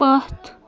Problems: background conversations at intervals